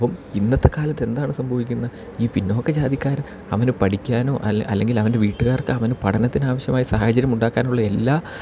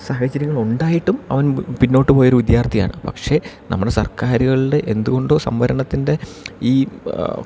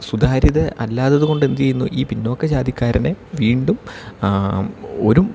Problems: none marked